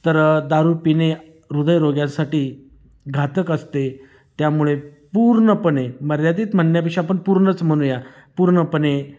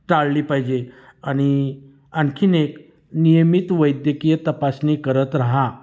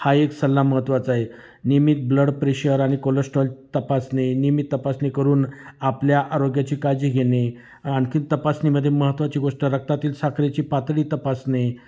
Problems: none marked